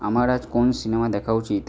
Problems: none marked